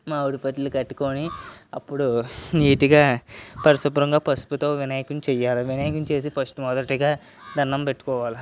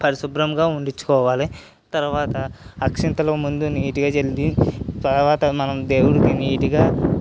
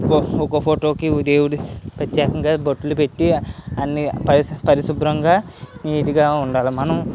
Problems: none marked